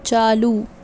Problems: background sounds at intervals